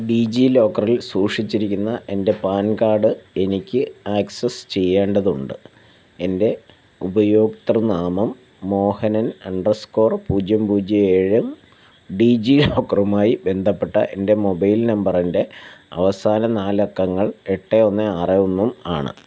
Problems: constant background noise